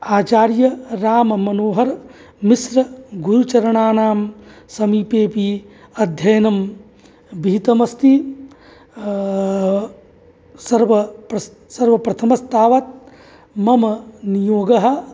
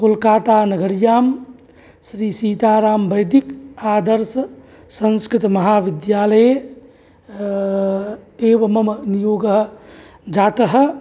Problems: none marked